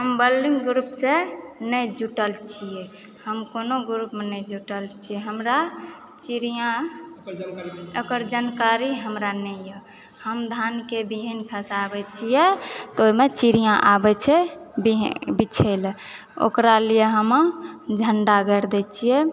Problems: background sounds at intervals